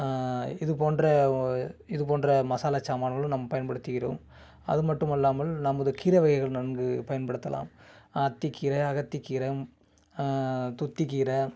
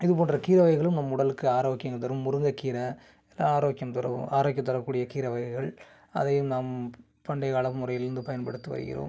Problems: background sounds at intervals